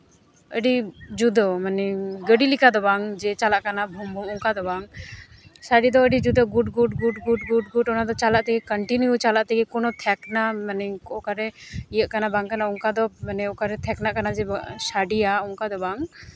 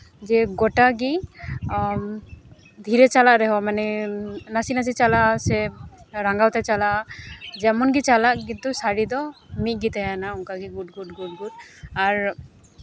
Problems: none marked